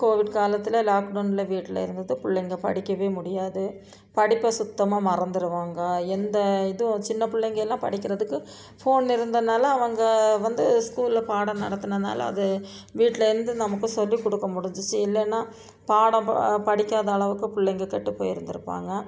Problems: background sounds at intervals, background conversations at intervals